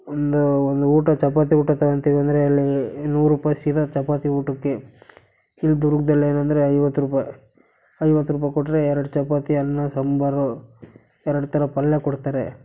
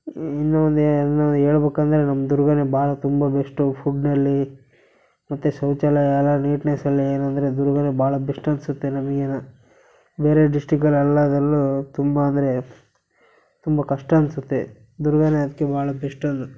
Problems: none marked